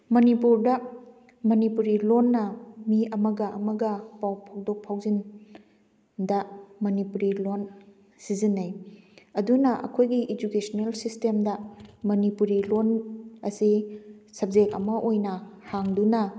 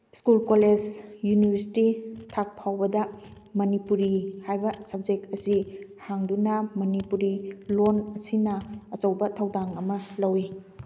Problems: none marked